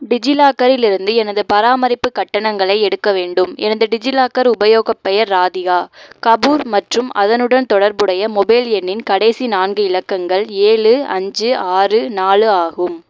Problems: background sounds at intervals